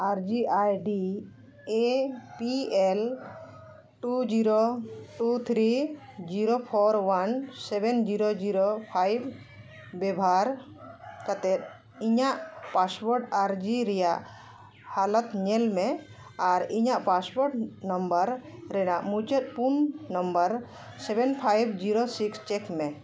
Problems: constant background noise